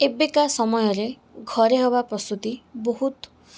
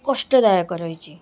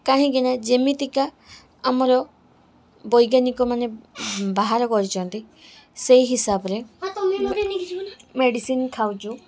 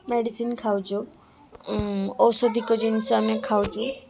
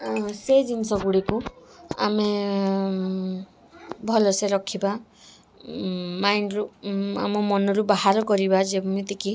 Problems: background sounds at intervals, background conversations at intervals